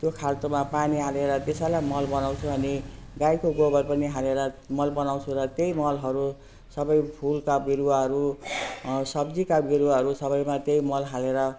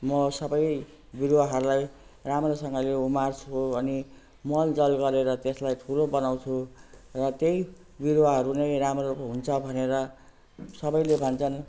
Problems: none marked